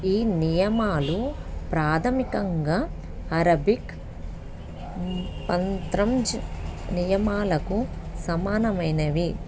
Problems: background sounds at intervals